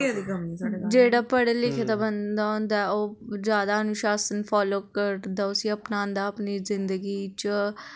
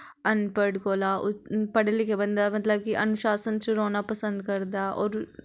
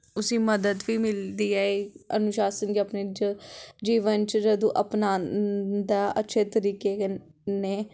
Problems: background conversations at intervals